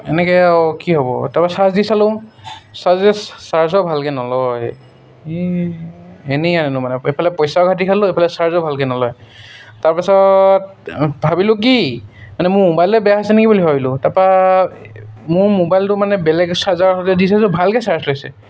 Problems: none marked